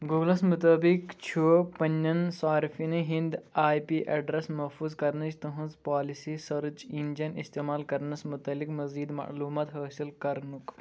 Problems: none marked